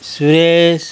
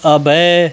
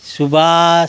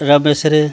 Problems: none marked